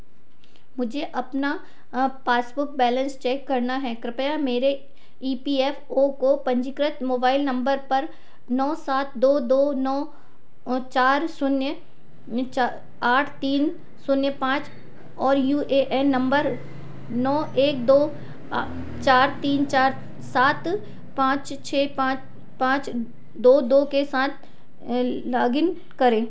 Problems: constant background noise